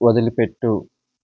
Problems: none marked